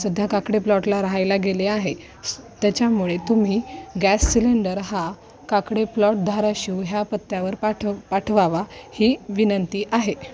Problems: none marked